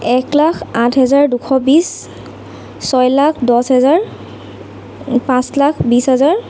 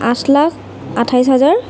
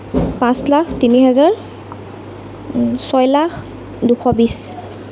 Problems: constant background noise